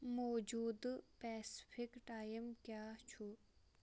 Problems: low volume